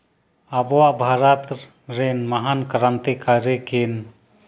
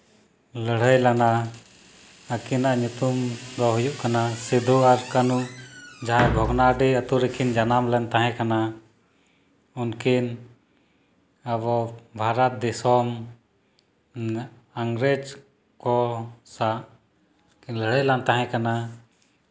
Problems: none marked